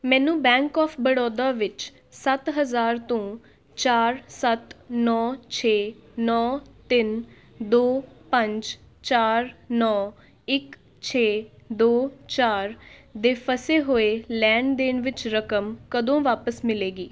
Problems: background sounds at intervals, background conversations at intervals